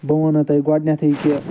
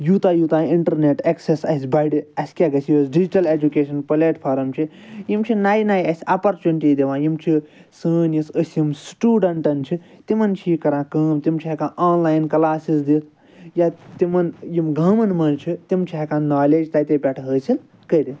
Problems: none marked